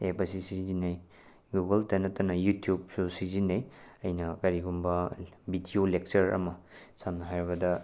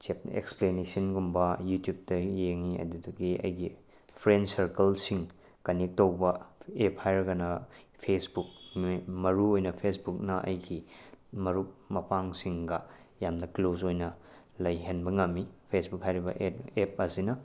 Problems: none marked